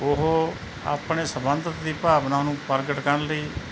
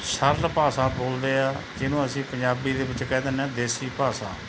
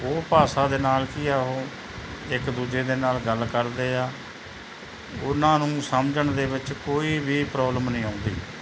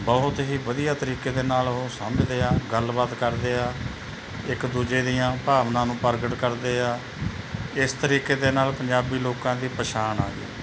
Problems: constant background noise